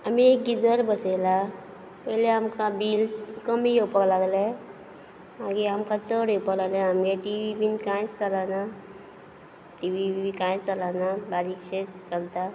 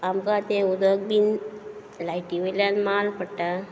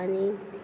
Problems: background sounds at intervals